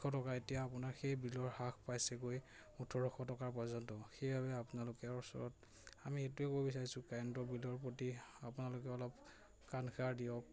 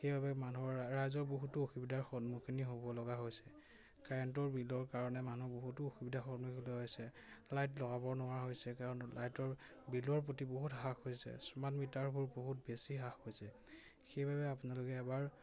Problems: constant background noise, background conversations at intervals